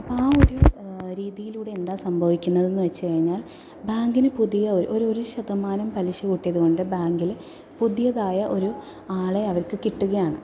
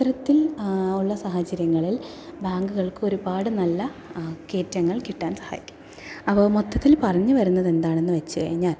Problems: background sounds at intervals